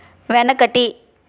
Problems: constant background noise